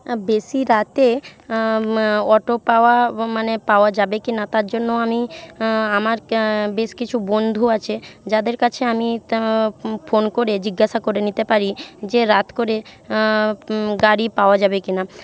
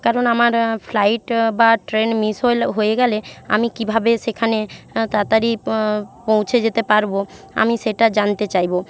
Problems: constant background noise